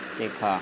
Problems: constant background noise